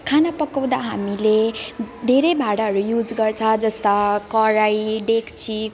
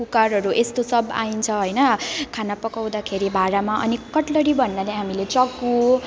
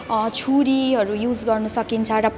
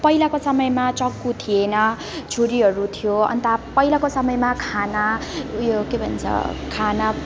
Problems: none marked